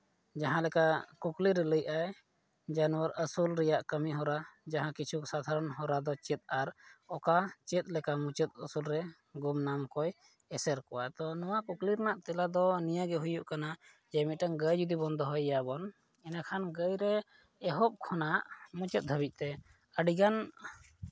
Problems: low volume